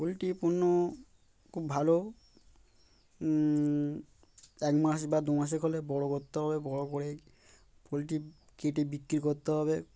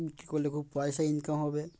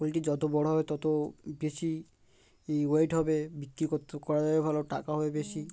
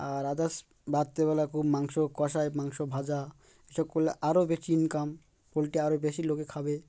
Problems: constant background noise